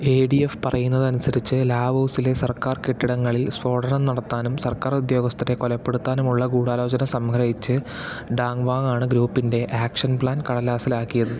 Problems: none marked